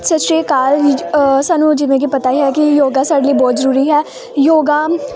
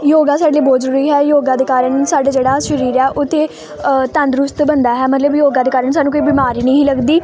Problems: none marked